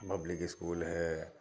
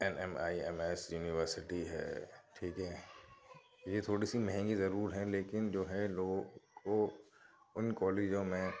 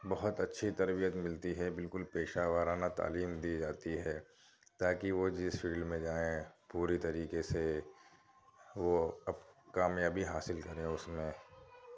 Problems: background conversations at intervals, low volume